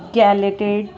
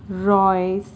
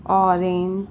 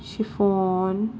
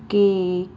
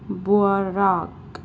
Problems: constant background noise